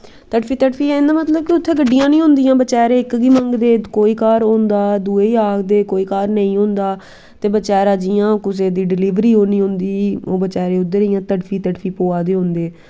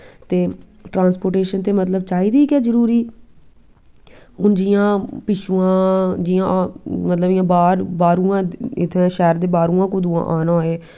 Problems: background sounds at intervals